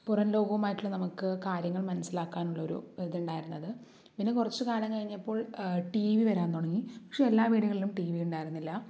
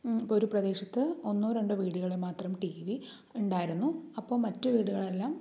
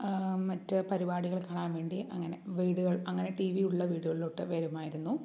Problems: low volume